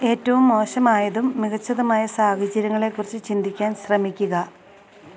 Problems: none marked